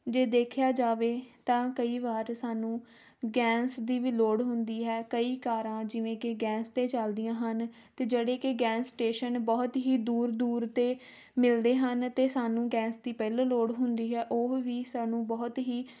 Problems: none marked